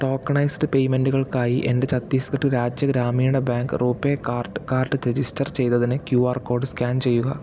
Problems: none marked